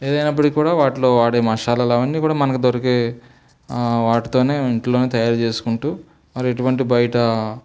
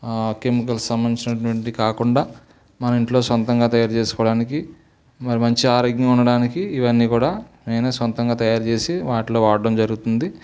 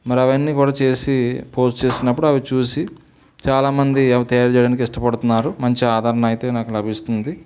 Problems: background sounds at intervals